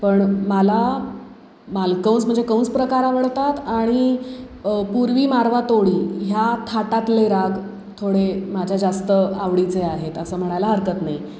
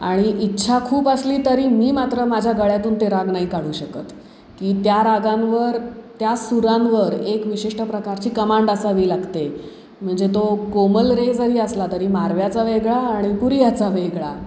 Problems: constant background noise